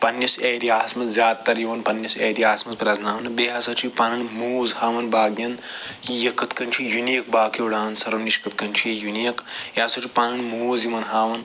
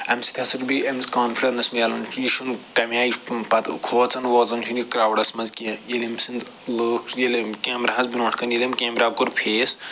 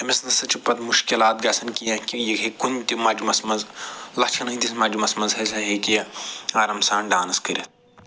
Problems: none marked